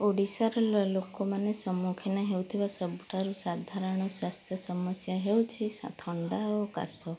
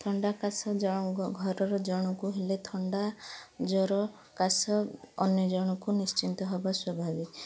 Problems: background sounds at intervals, background conversations at intervals